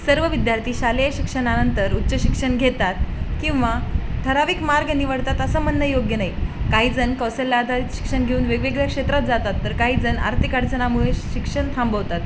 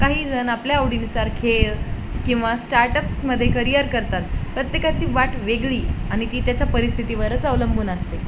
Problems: constant background noise